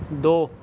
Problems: none marked